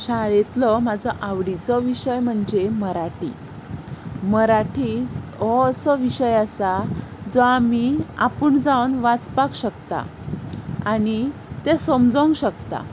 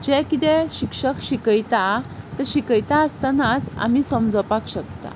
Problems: constant background noise